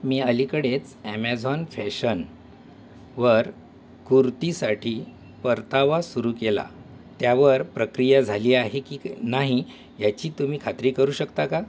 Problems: constant background noise